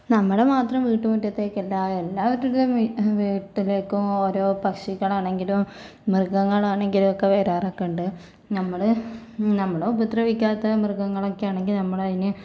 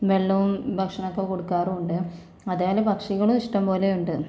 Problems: none marked